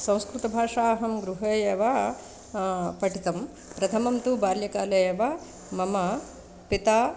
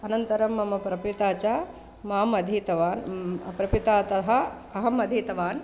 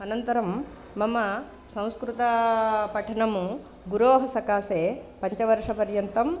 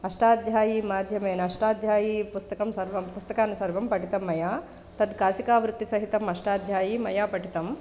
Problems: constant background noise